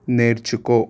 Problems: constant background noise